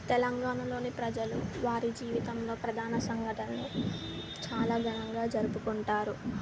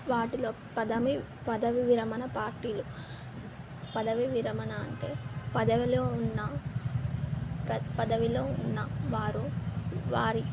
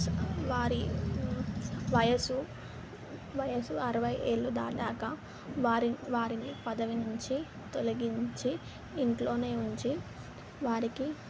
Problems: constant background noise